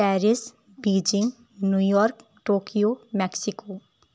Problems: none marked